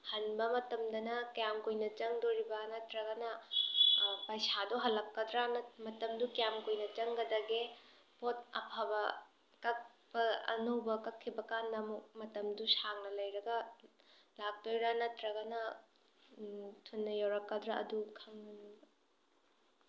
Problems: background sounds at intervals